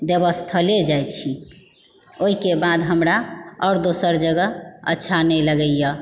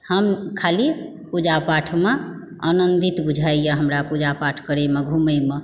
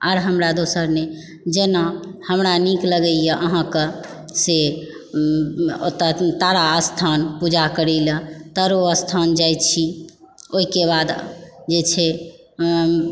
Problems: background sounds at intervals